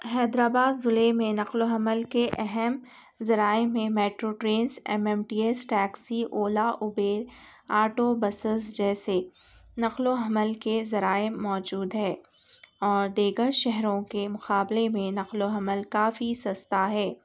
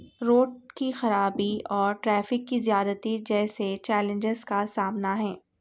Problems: none marked